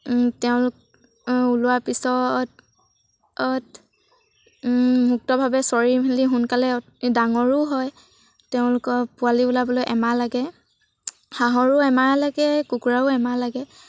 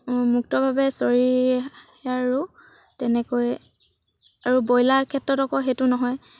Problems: none marked